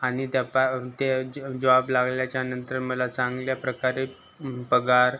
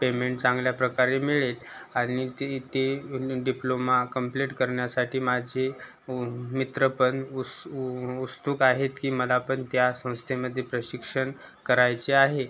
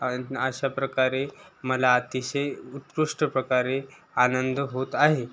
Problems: constant background noise